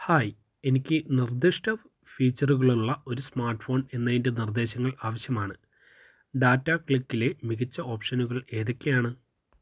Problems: none marked